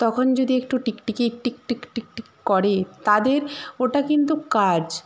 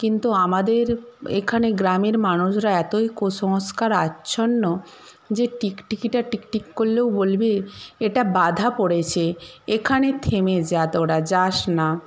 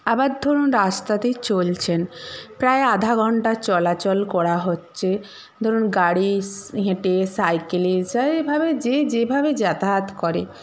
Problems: background sounds at intervals